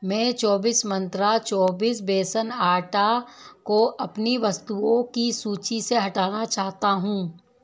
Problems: none marked